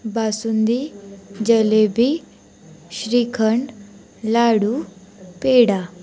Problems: continuous background conversations